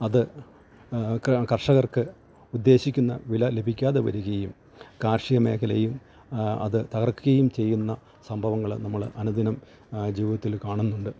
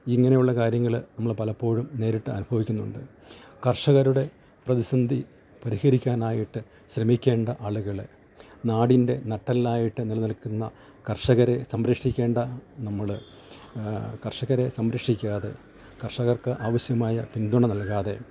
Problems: background sounds at intervals